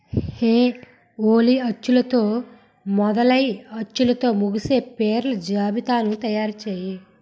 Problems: none marked